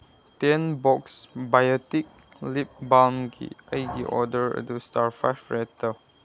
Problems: background sounds at intervals